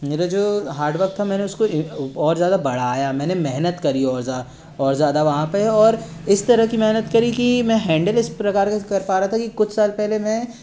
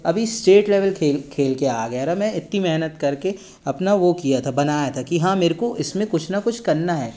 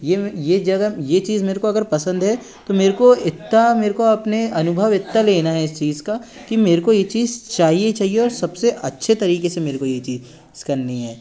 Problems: background sounds at intervals